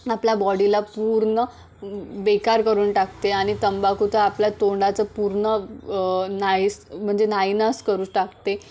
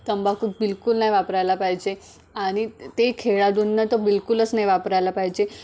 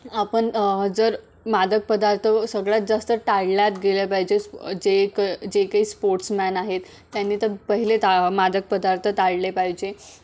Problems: none marked